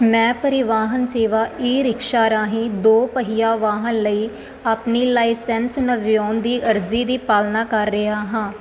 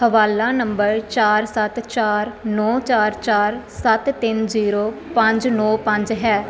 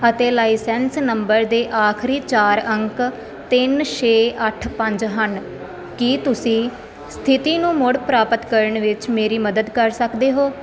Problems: constant background noise